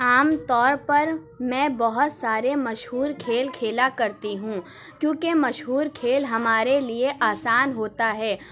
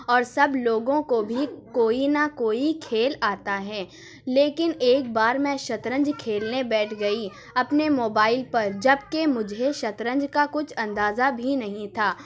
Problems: none marked